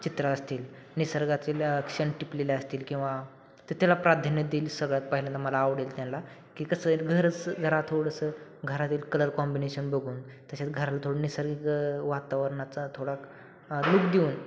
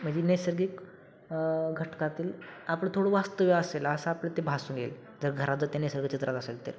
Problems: constant background noise